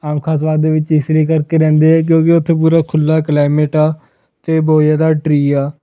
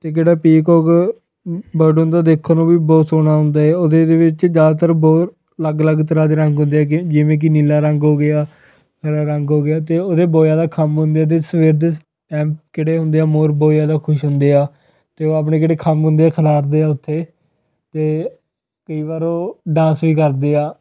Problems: none marked